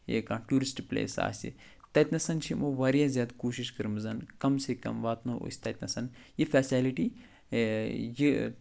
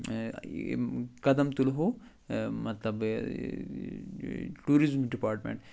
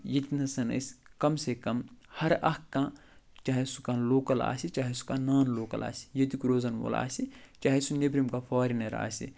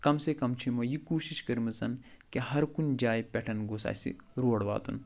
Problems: none marked